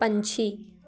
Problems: constant background noise